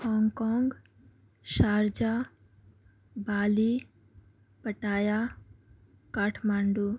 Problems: low volume